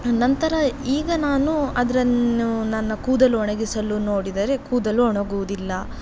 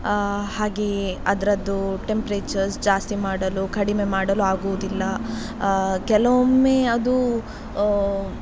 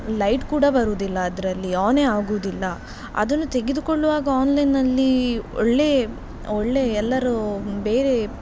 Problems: background sounds at intervals